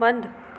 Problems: constant background noise